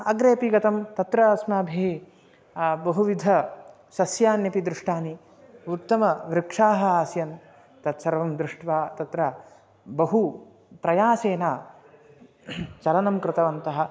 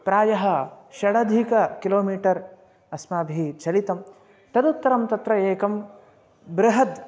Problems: constant background noise